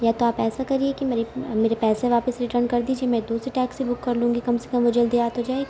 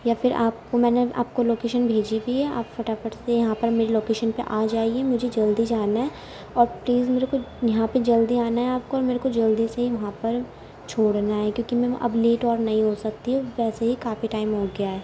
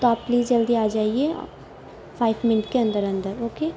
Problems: constant background noise, low volume